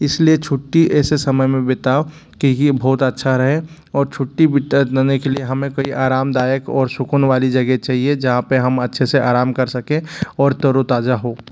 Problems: constant background noise